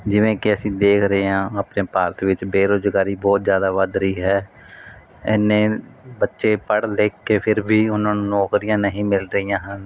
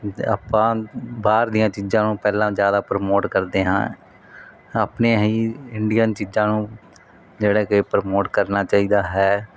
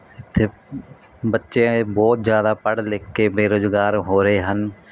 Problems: none marked